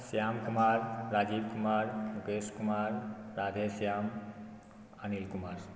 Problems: background sounds at intervals, low volume